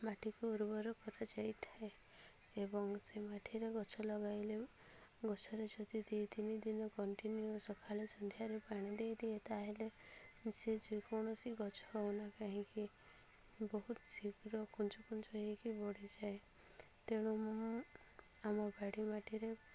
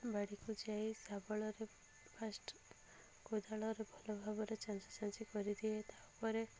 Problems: low volume